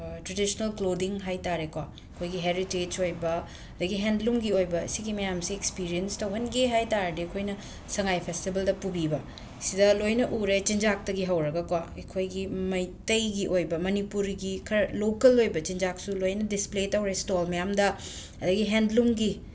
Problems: constant background noise